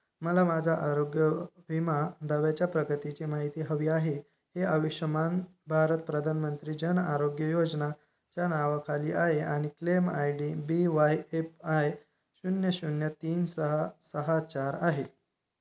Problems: none marked